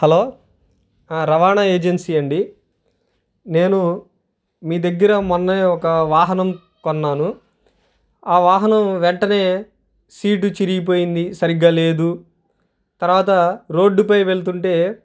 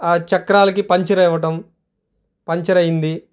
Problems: none marked